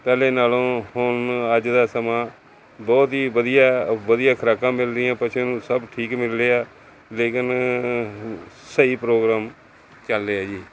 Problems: none marked